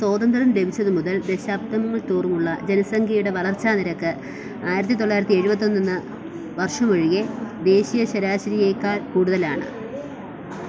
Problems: constant background noise